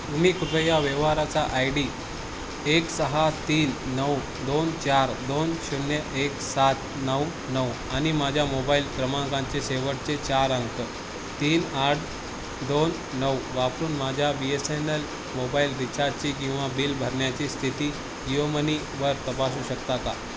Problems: constant background noise